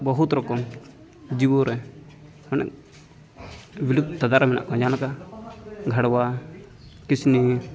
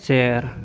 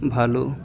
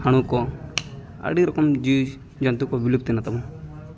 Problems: continuous background conversations